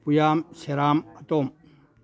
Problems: none marked